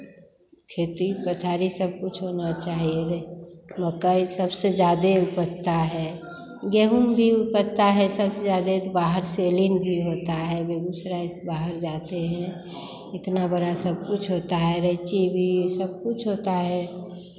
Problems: constant background noise, background conversations at intervals